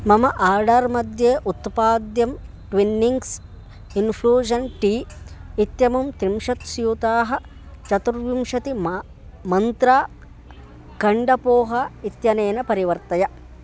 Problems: constant background noise